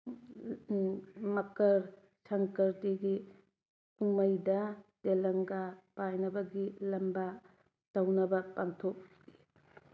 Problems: none marked